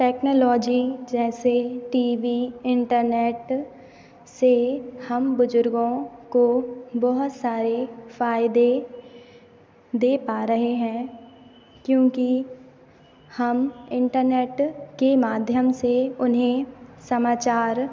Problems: constant background noise